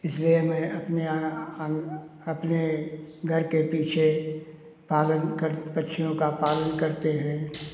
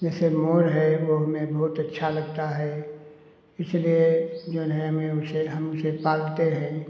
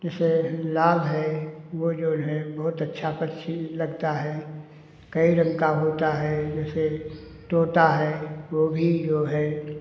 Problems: none marked